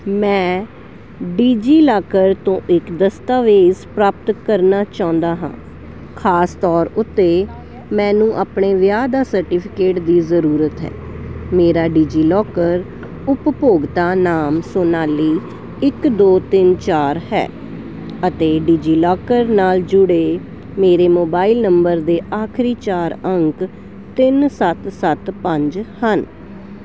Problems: none marked